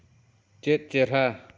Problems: echo